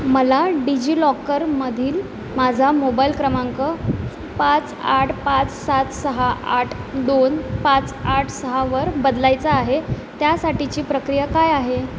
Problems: none marked